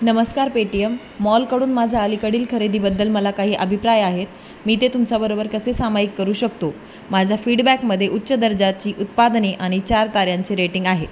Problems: constant background noise